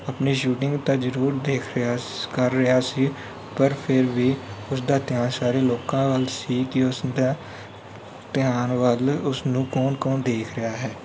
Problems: background sounds at intervals